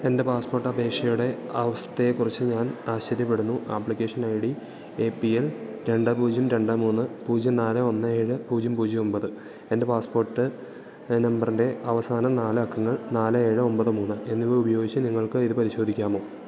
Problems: low volume